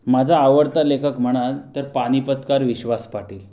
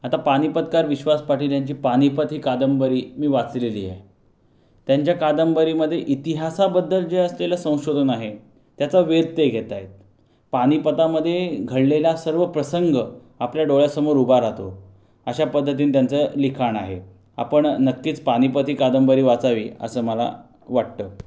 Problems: background sounds at intervals